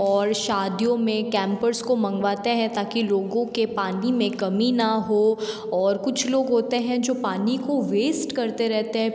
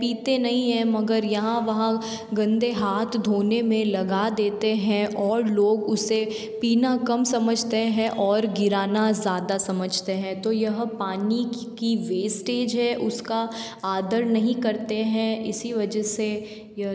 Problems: background sounds at intervals